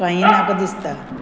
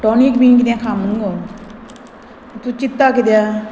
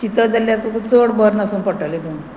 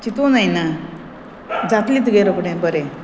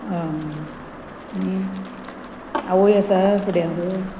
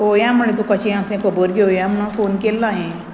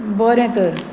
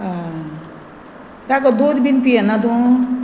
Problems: constant background noise